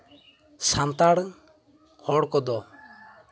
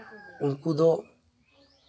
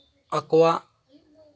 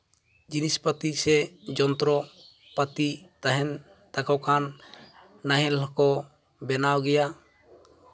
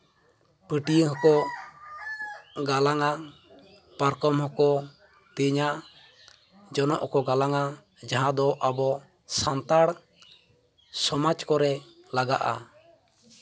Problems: background sounds at intervals